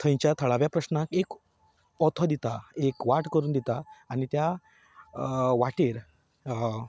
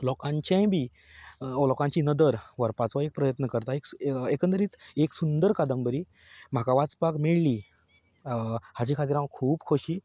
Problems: constant background noise